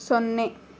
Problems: none marked